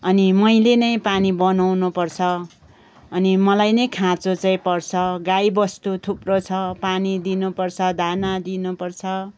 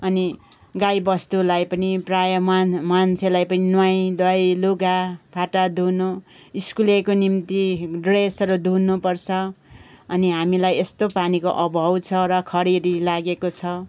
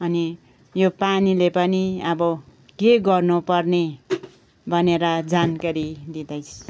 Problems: background sounds at intervals, background conversations at intervals